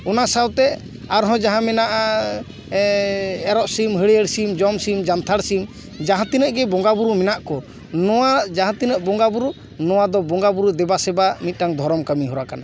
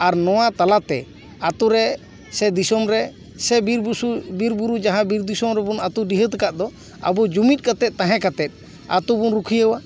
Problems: background sounds at intervals, background conversations at intervals